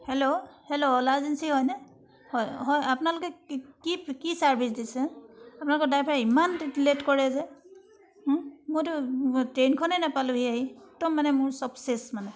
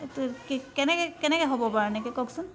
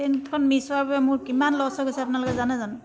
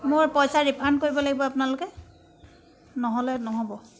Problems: background sounds at intervals